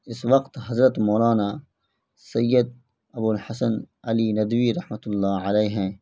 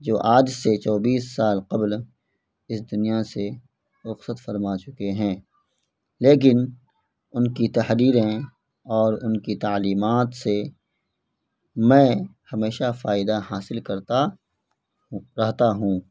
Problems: background sounds at intervals